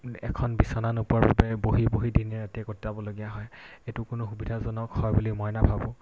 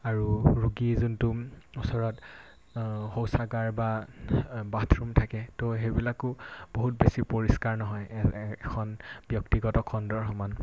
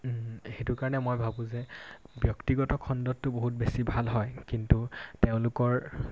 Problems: constant background noise